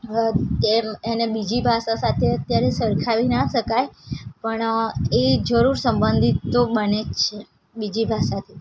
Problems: constant background noise